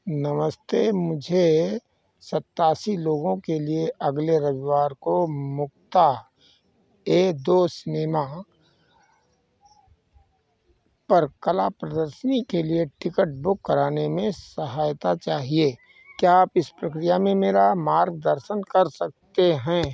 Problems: background sounds at intervals